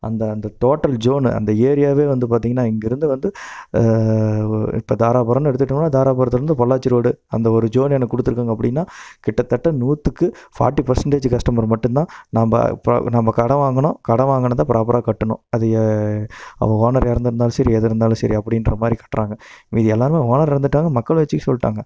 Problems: none marked